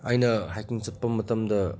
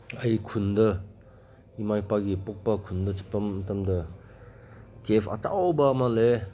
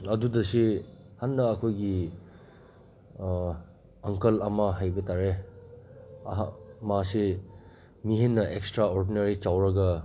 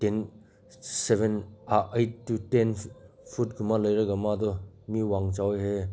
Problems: background sounds at intervals